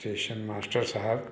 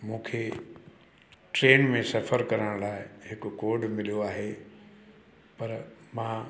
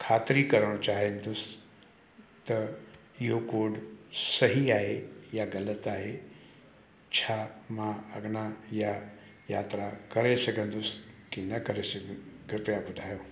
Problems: constant background noise, echo